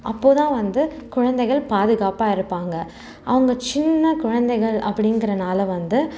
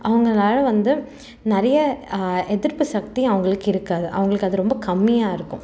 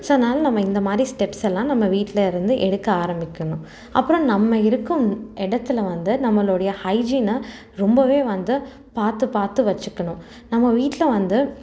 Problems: constant background noise